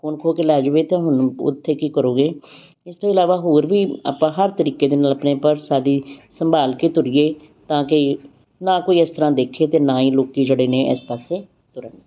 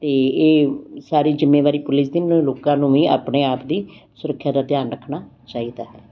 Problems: background sounds at intervals